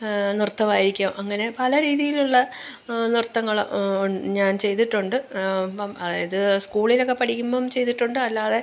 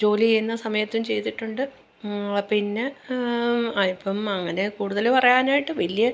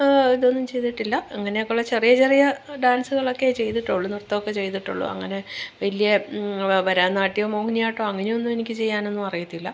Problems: none marked